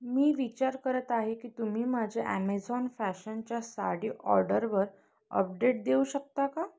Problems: background sounds at intervals, continuous background conversations